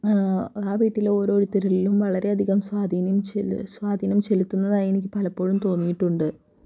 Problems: low volume